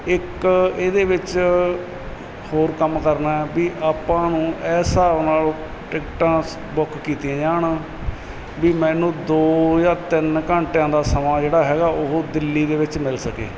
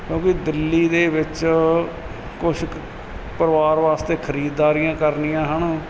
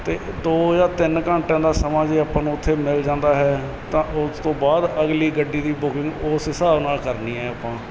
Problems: none marked